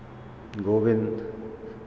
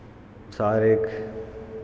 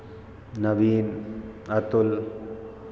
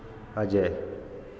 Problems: constant background noise